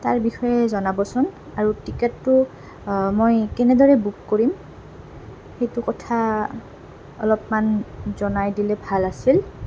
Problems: constant background noise